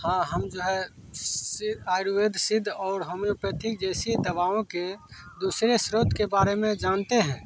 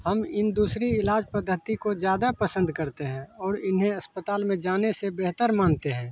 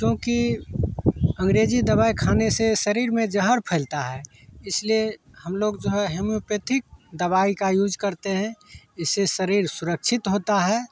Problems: constant background noise